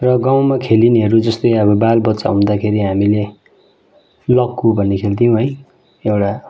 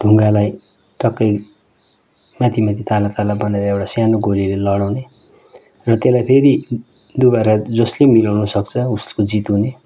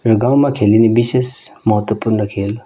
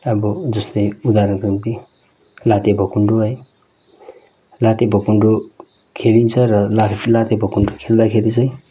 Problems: background sounds at intervals